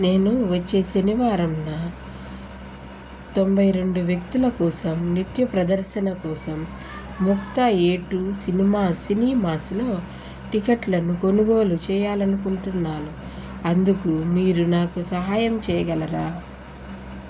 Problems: constant background noise